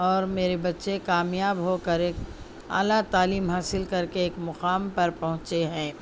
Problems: none marked